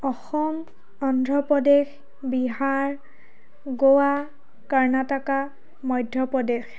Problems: continuous background conversations